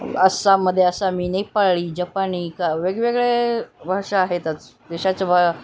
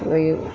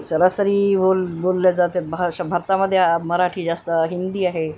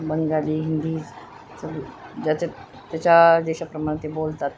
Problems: none marked